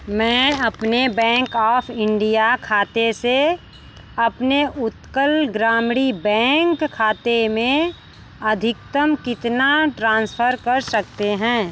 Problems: constant background noise